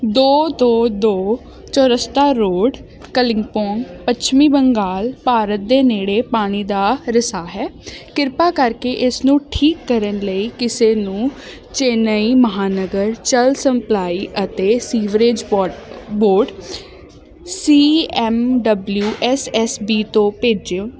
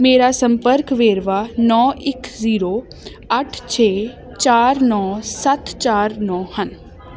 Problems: constant background noise